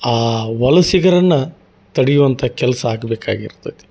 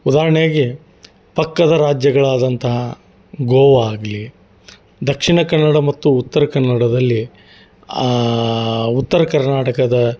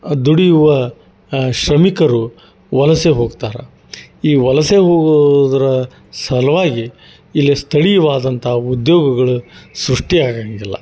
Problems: none marked